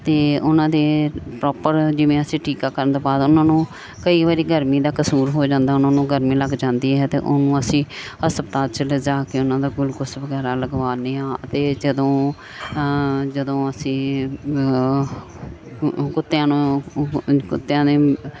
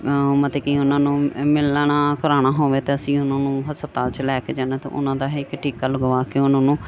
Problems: background sounds at intervals